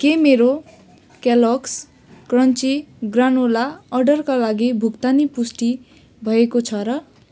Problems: background sounds at intervals